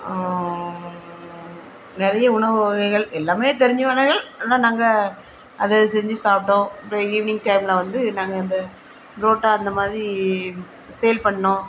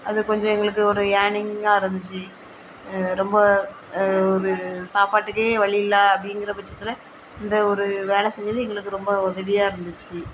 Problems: constant background noise